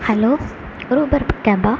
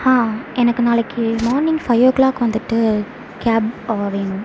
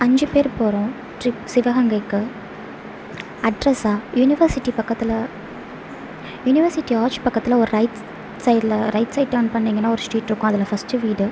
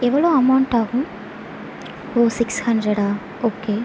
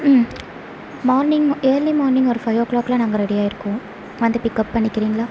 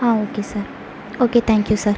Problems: none marked